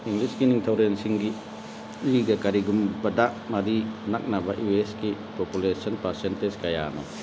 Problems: constant background noise